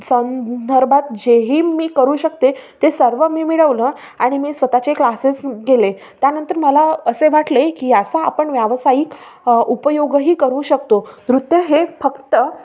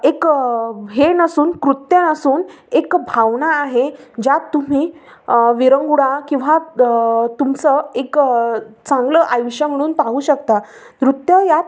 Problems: none marked